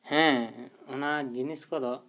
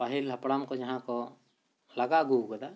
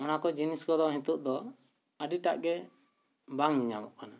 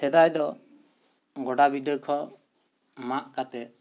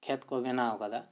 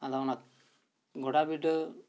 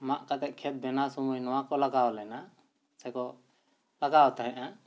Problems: none marked